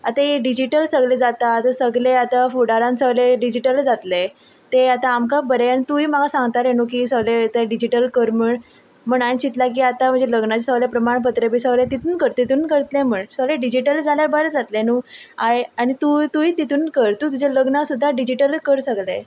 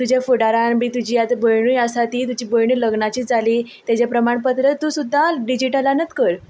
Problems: constant background noise